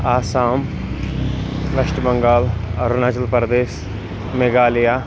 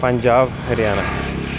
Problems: constant background noise